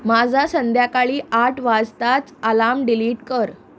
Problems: constant background noise